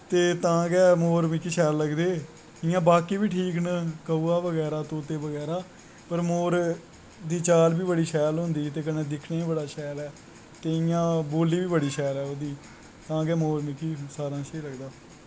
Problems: constant background noise